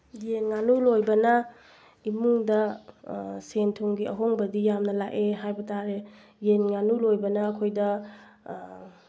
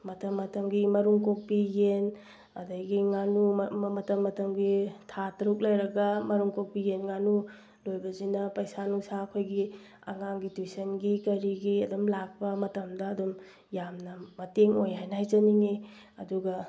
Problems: background sounds at intervals